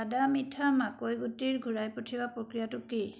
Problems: background sounds at intervals